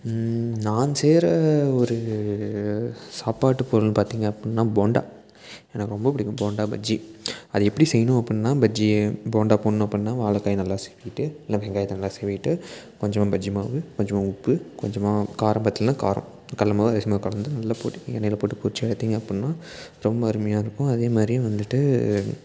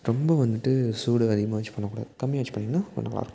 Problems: background sounds at intervals